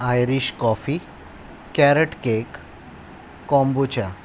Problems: constant background noise